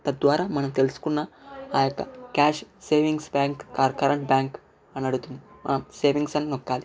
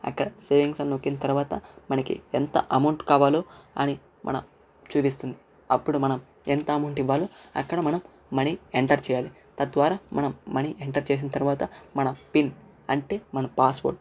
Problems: background sounds at intervals, background conversations at intervals, low volume